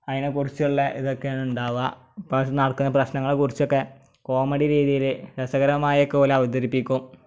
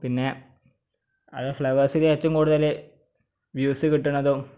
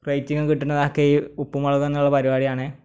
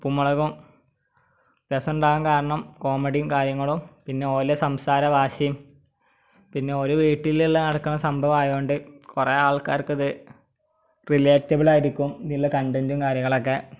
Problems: none marked